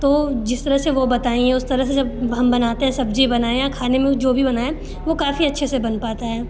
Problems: constant background noise